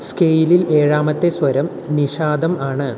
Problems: constant background noise